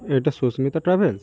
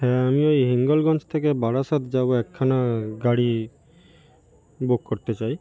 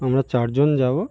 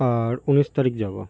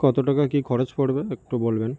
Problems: constant background noise